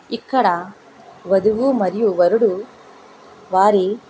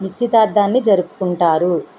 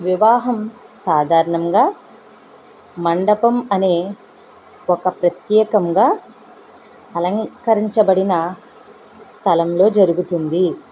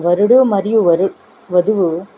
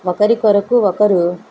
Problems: constant background noise